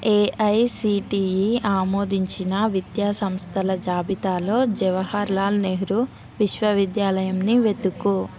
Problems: none marked